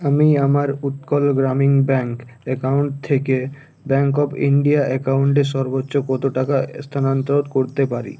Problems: none marked